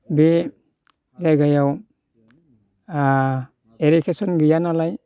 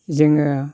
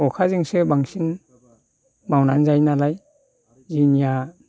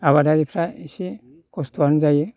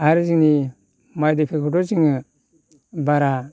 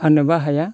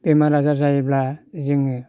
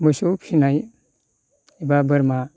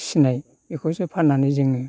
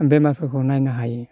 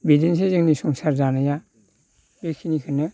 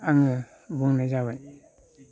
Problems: none marked